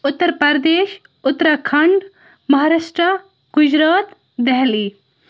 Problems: background sounds at intervals